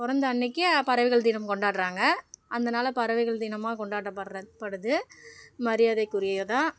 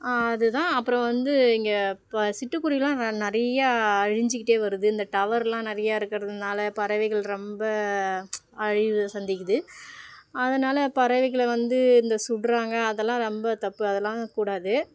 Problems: background sounds at intervals